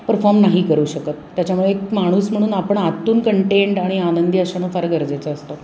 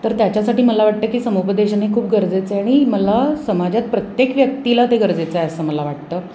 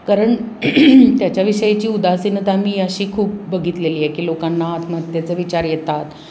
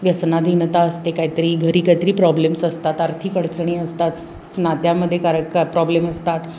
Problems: none marked